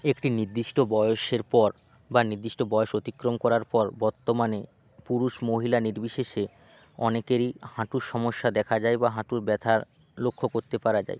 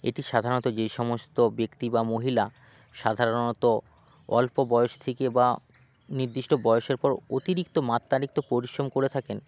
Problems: background sounds at intervals